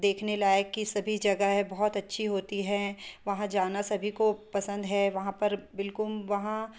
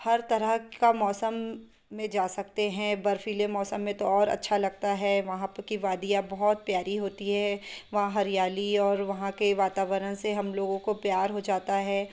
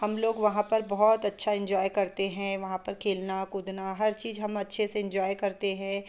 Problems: background sounds at intervals